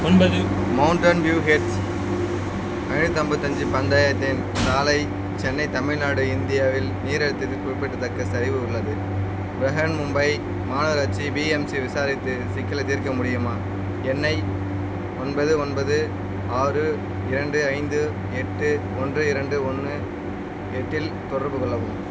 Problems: constant background noise